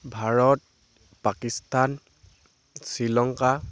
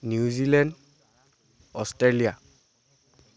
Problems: constant background noise